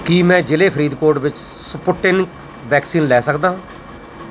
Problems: constant background noise